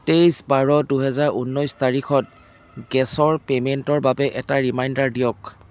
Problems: constant background noise